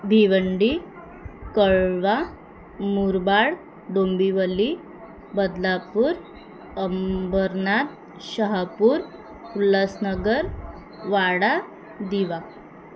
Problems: constant background noise, background conversations at intervals